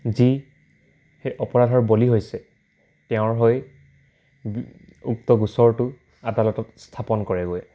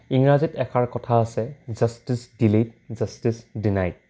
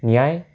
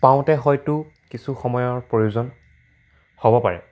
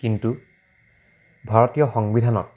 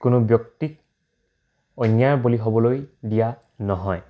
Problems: constant background noise